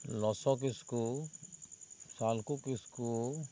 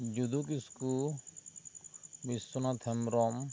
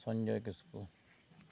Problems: constant background noise